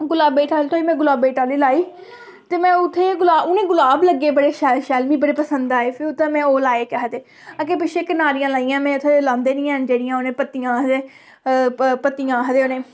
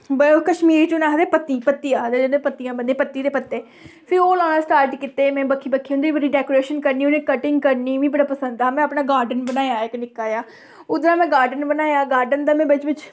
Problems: background sounds at intervals